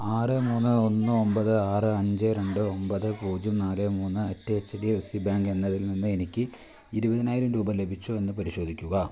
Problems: none marked